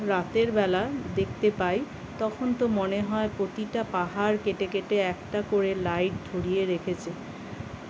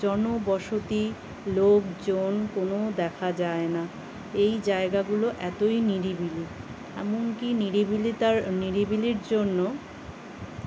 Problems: constant background noise, continuous background conversations